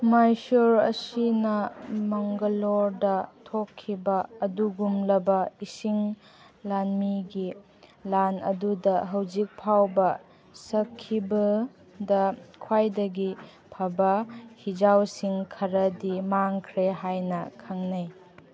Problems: background conversations at intervals